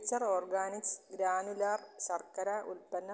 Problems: low volume